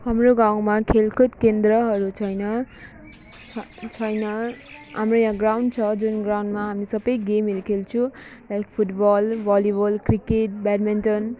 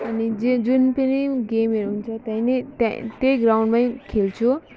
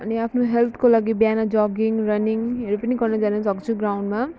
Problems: background sounds at intervals